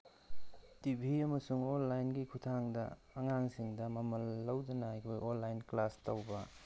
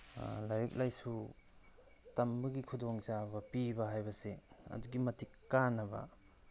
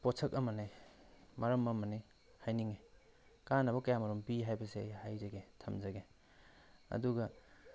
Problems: none marked